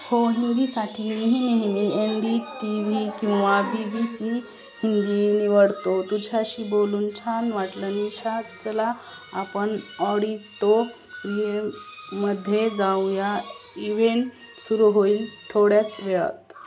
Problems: constant background noise, background conversations at intervals